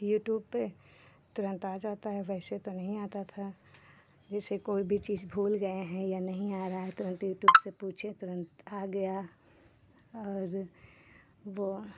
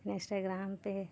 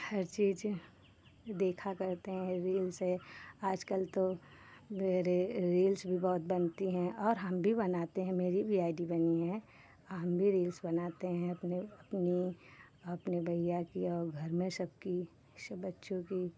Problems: none marked